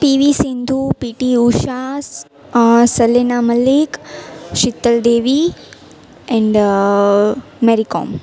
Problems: none marked